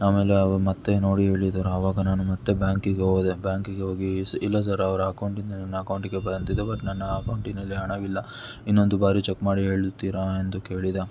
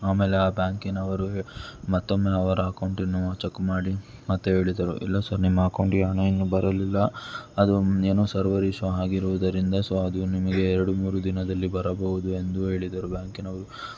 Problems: background sounds at intervals